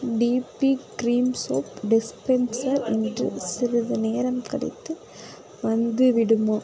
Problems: background conversations at intervals